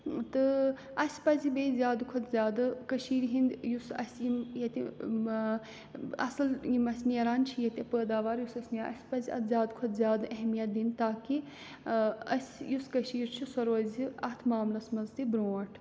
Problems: background sounds at intervals